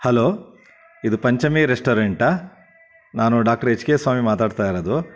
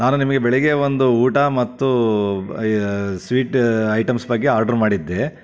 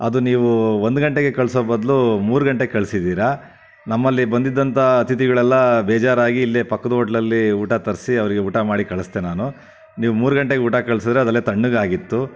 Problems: none marked